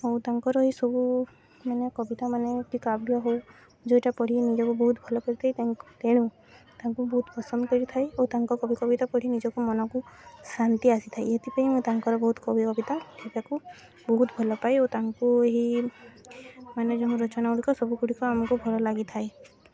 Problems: constant background noise, continuous background conversations